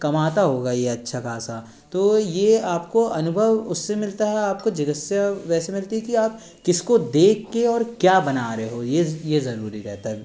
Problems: constant background noise